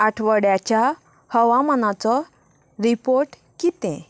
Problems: constant background noise